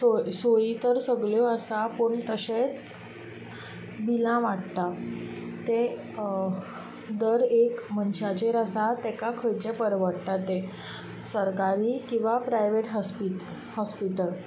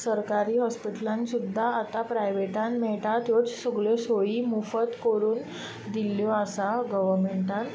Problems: constant background noise